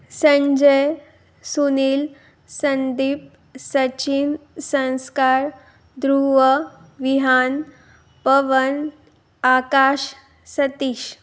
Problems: background sounds at intervals